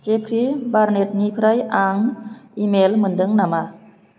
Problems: none marked